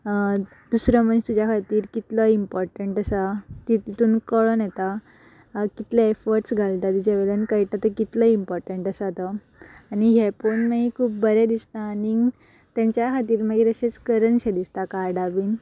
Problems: background sounds at intervals